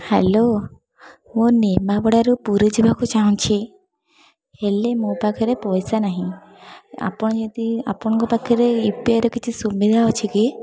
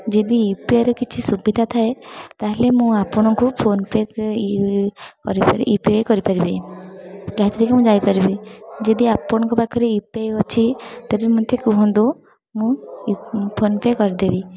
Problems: constant background noise, continuous background conversations